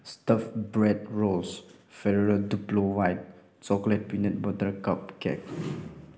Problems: background sounds at intervals